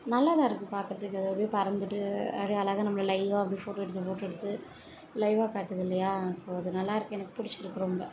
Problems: none marked